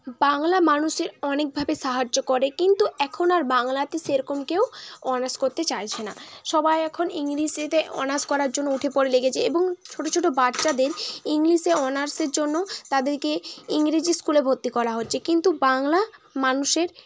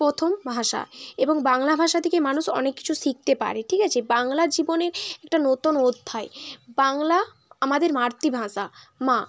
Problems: constant background noise, continuous background conversations